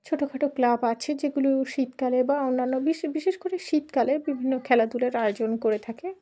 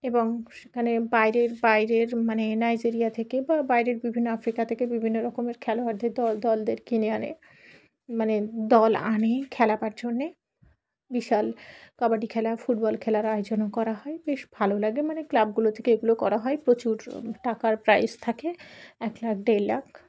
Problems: background sounds at intervals, background conversations at intervals